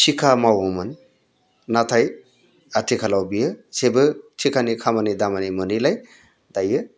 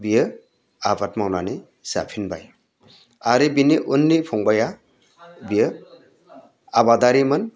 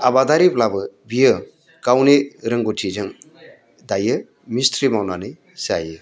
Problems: constant background noise